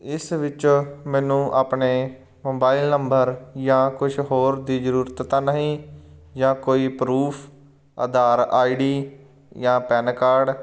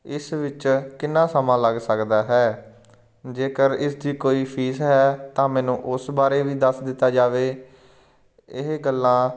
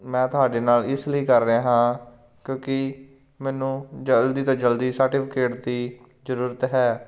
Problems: none marked